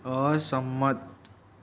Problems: none marked